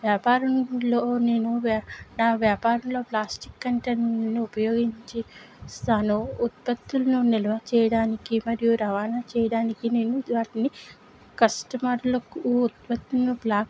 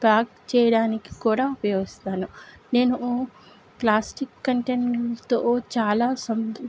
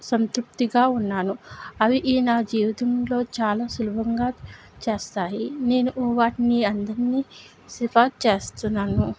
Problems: none marked